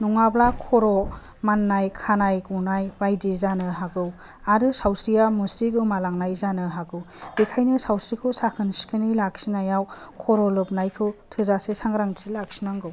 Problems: low volume